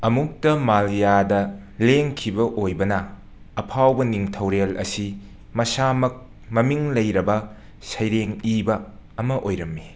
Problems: none marked